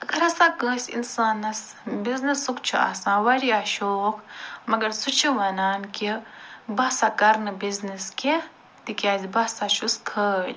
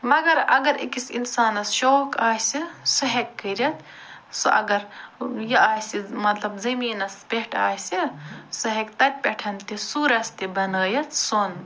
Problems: none marked